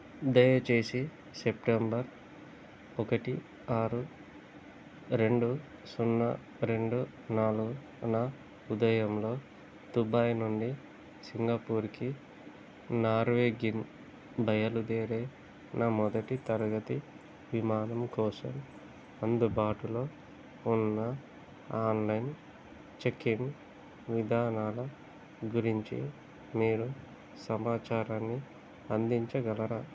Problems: constant background noise